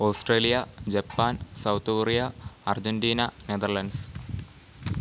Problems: low volume